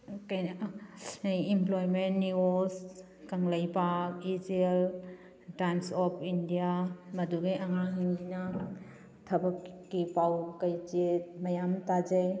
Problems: background sounds at intervals